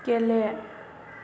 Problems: constant background noise